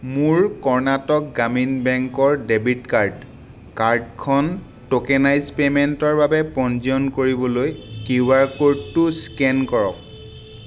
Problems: constant background noise